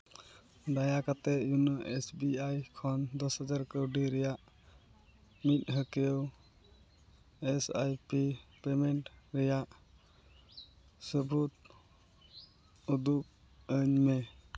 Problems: none marked